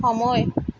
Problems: constant background noise